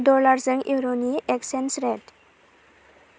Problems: none marked